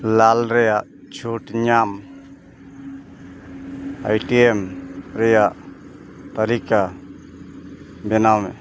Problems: constant background noise